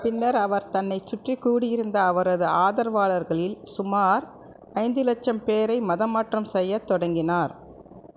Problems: none marked